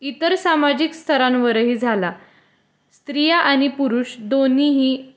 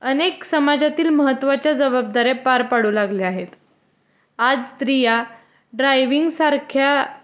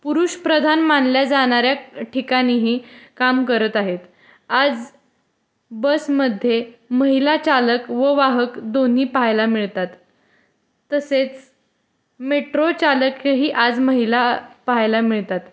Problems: constant background noise, background conversations at intervals